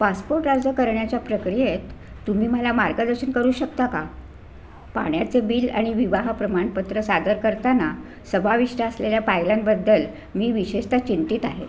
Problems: none marked